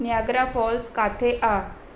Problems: constant background noise